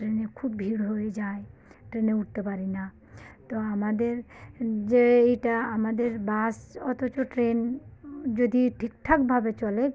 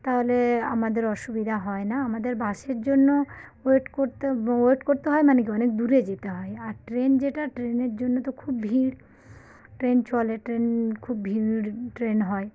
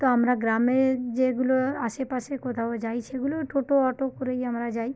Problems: none marked